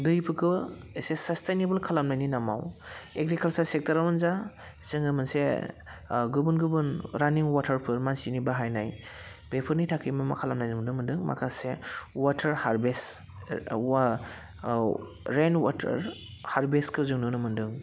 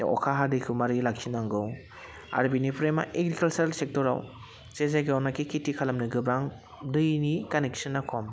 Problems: constant background noise